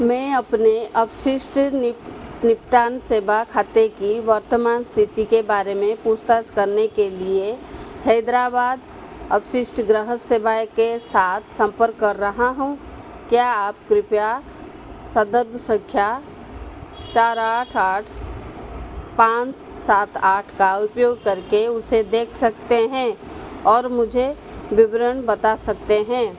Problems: constant background noise